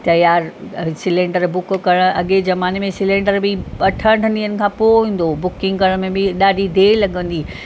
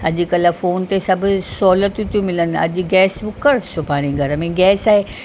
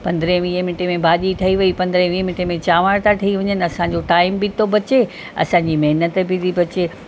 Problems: constant background noise